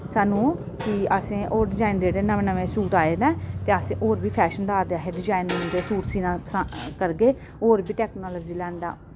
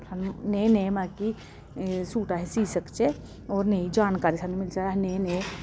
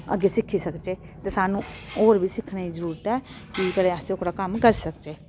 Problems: constant background noise